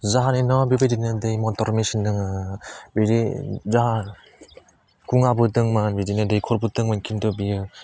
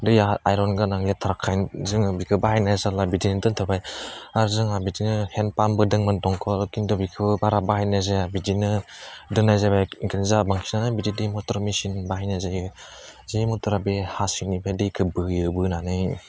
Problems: none marked